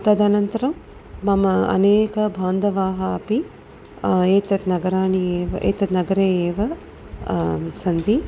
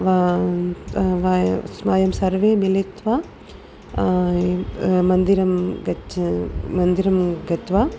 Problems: none marked